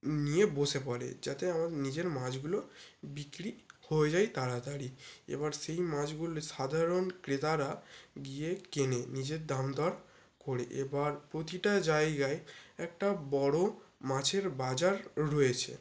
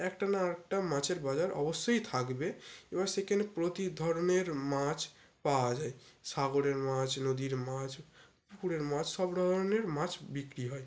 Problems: none marked